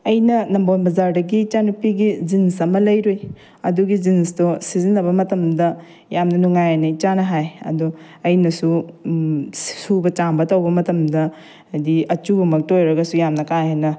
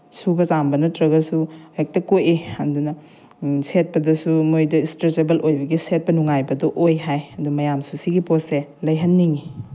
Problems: background sounds at intervals